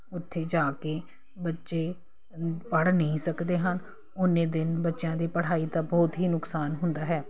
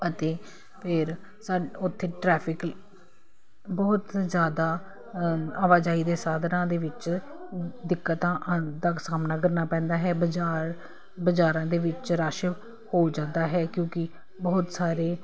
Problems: none marked